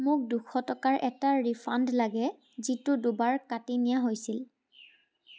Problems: background sounds at intervals